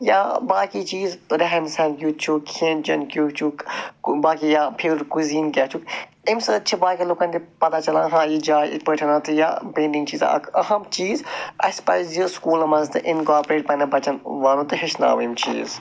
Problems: none marked